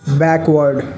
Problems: background sounds at intervals